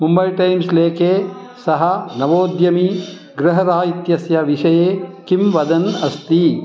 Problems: none marked